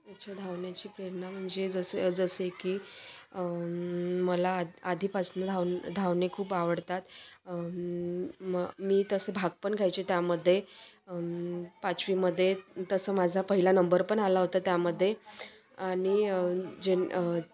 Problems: none marked